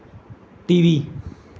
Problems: none marked